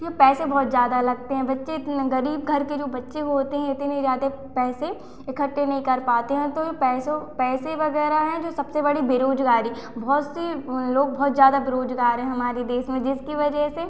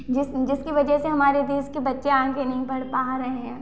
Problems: constant background noise, echo